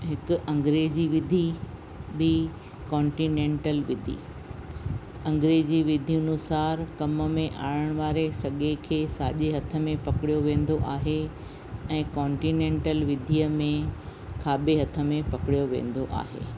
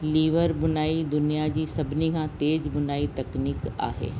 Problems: constant background noise